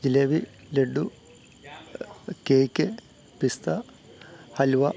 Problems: low volume